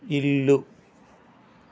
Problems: constant background noise